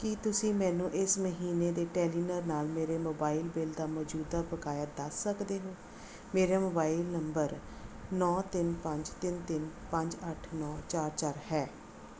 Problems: background sounds at intervals